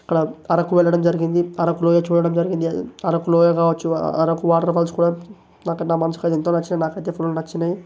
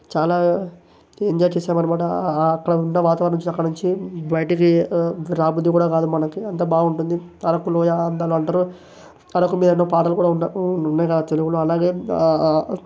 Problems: none marked